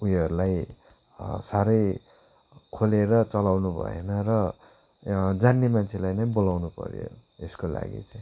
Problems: constant background noise